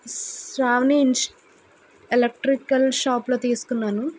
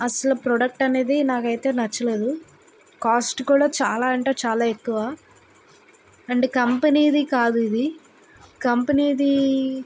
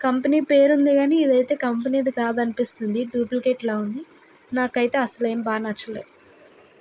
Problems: constant background noise